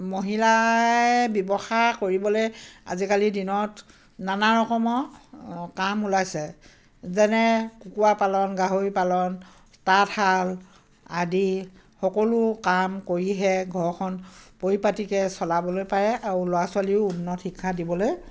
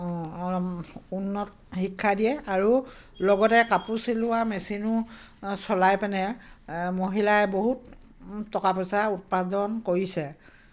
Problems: none marked